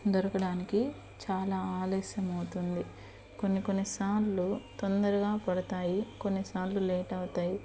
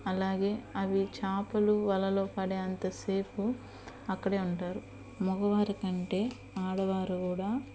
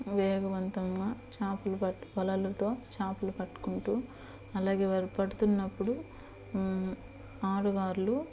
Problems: constant background noise